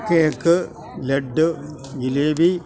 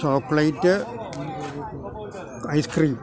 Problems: constant background noise